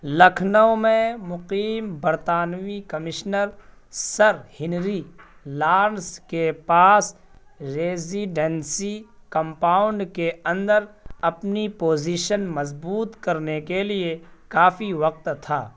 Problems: none marked